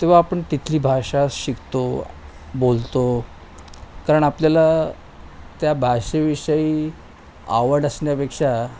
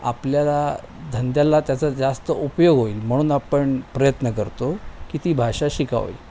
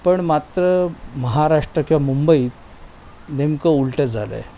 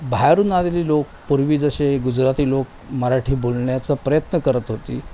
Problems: none marked